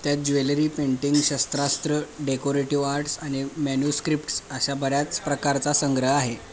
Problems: background sounds at intervals, background conversations at intervals